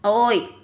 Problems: none marked